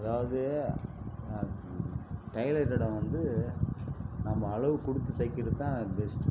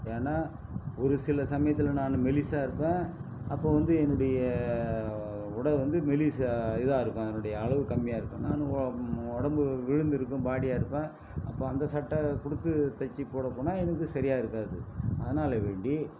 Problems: background sounds at intervals